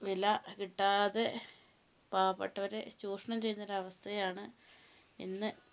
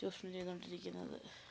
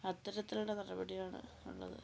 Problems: low volume